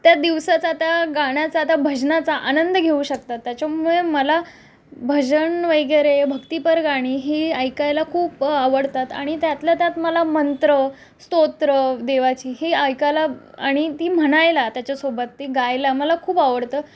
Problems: background sounds at intervals